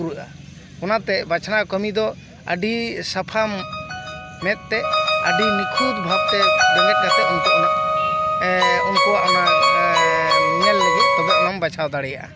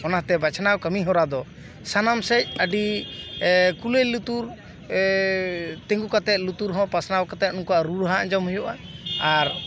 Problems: background sounds at intervals, background conversations at intervals